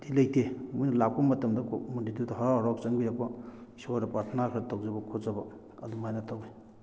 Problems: none marked